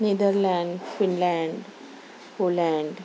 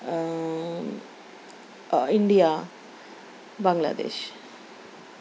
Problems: none marked